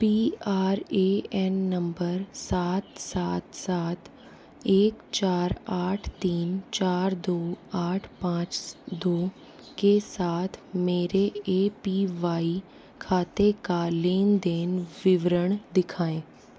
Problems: constant background noise, low volume